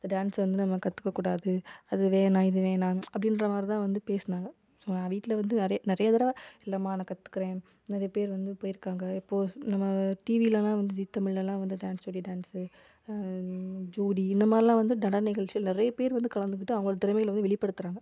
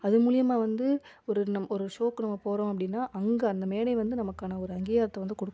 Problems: none marked